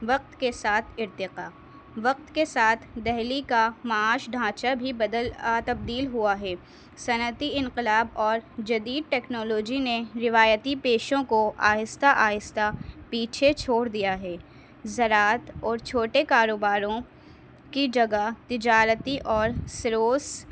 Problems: background sounds at intervals